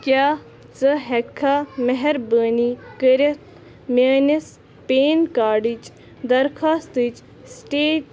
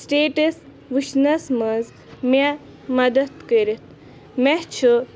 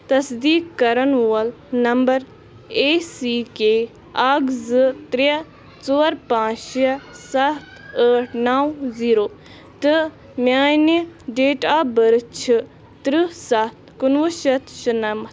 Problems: constant background noise, continuous background conversations